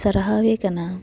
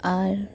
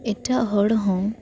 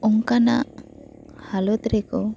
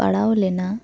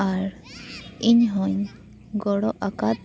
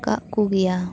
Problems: background sounds at intervals, continuous background conversations